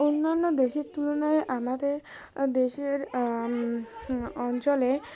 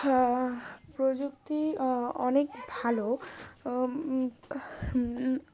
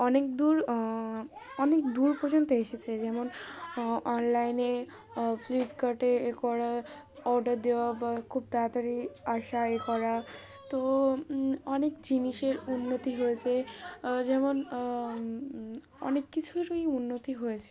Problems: background sounds at intervals